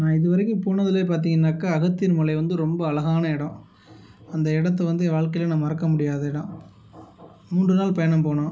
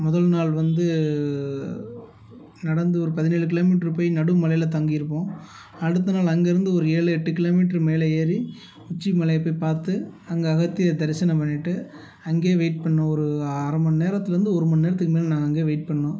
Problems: background sounds at intervals